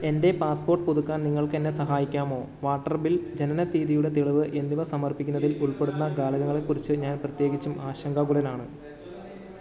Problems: background sounds at intervals